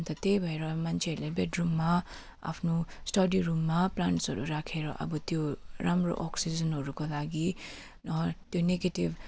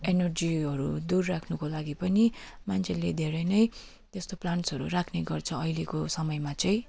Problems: constant background noise